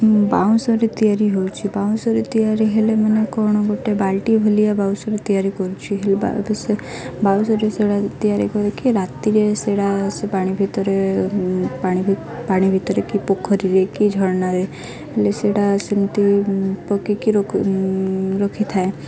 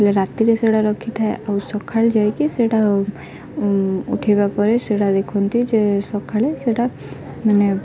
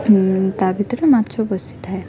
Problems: constant background noise, continuous background conversations